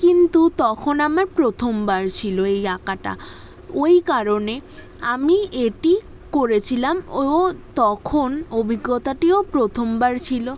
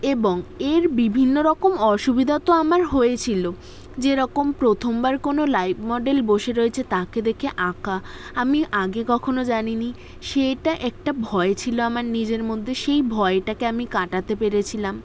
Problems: background sounds at intervals